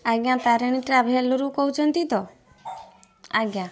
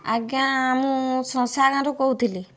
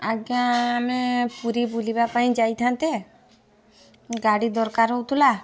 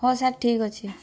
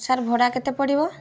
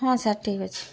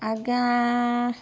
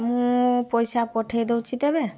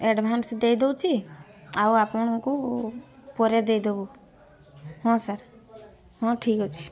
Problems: constant background noise